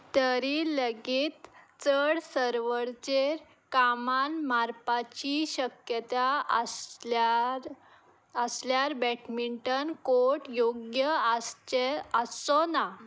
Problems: background sounds at intervals